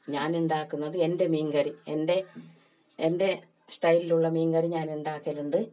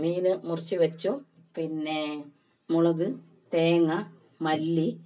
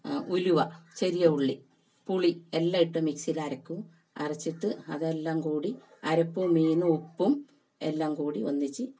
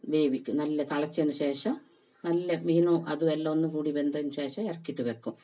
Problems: none marked